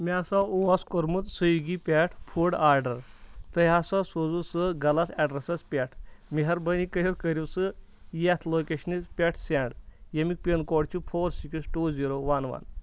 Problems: background sounds at intervals